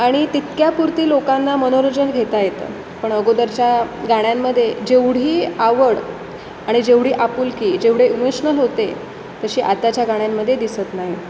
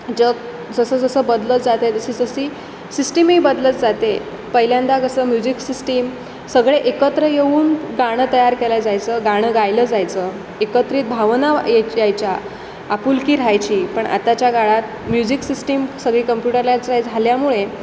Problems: constant background noise, background conversations at intervals